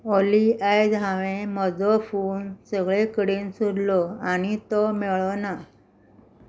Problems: none marked